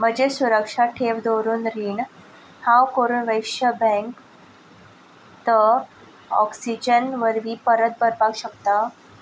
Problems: none marked